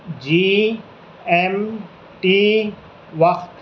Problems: none marked